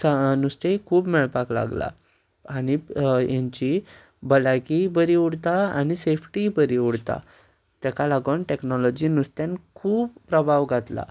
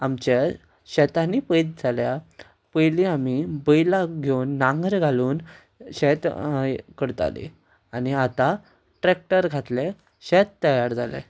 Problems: background sounds at intervals